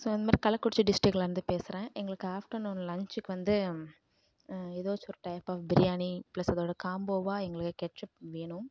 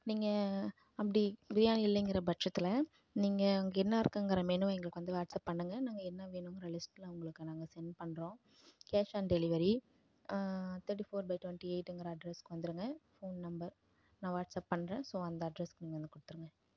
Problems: low volume